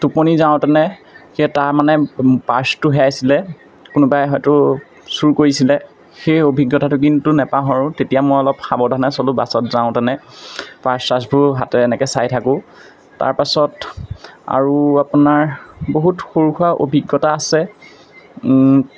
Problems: constant background noise, background conversations at intervals